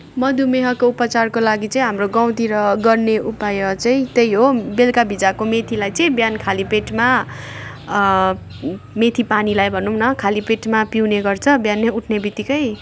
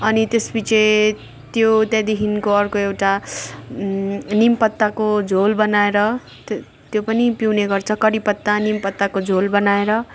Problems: background sounds at intervals